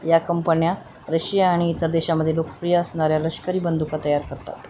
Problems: constant background noise